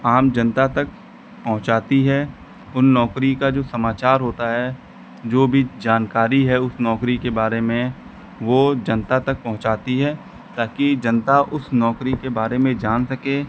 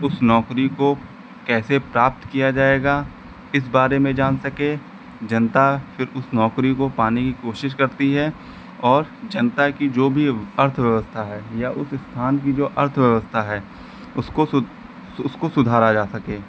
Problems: none marked